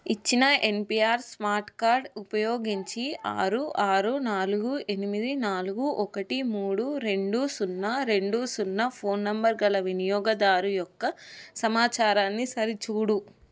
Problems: none marked